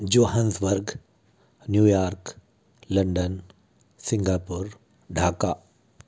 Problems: none marked